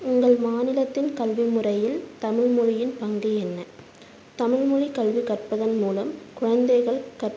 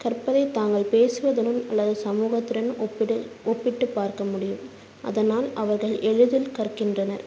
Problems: constant background noise